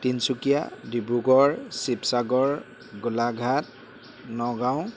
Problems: constant background noise